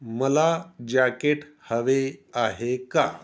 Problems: background sounds at intervals